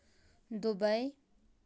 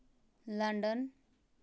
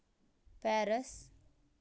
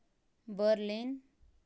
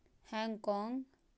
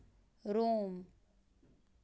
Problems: background sounds at intervals, low volume